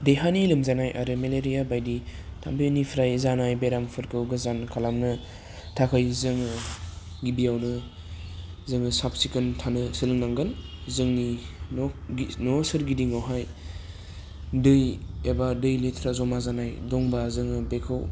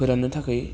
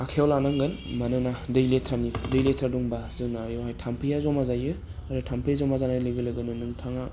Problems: low volume